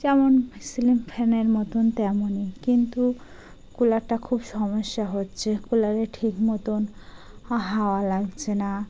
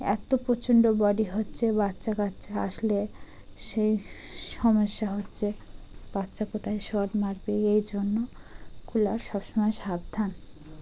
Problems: none marked